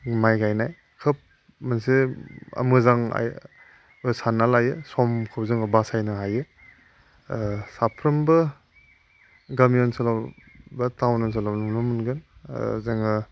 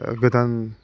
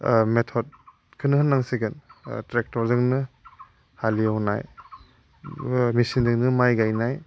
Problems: constant background noise